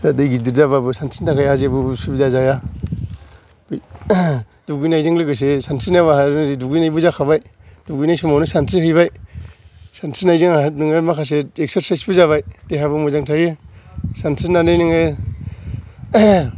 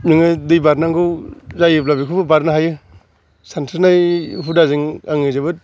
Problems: background sounds at intervals